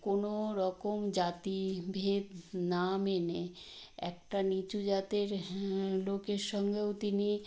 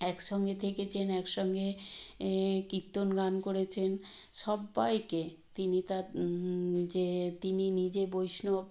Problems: none marked